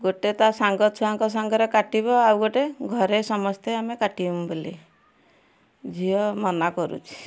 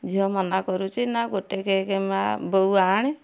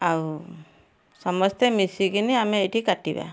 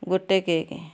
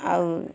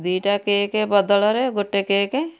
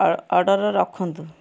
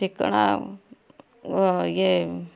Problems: constant background noise, continuous background conversations